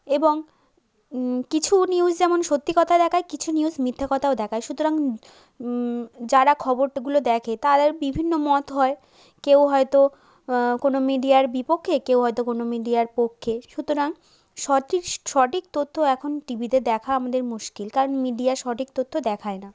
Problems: background sounds at intervals